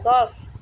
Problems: constant background noise